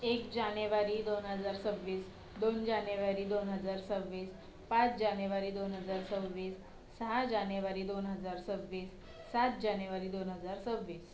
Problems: low volume